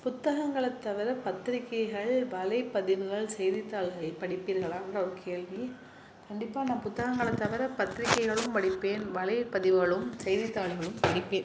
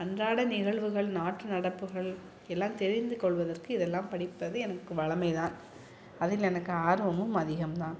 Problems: background sounds at intervals